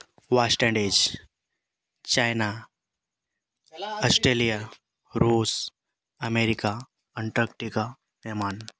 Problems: background sounds at intervals